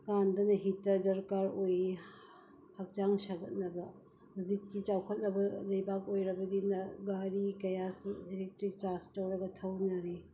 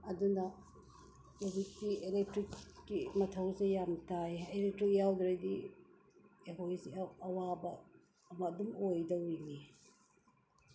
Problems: background sounds at intervals